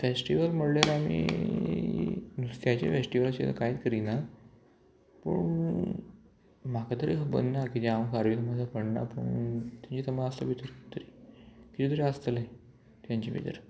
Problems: constant background noise